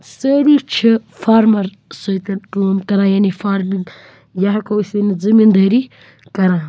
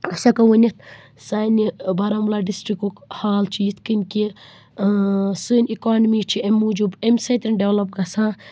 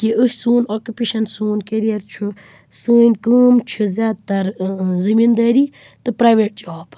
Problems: constant background noise